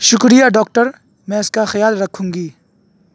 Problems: constant background noise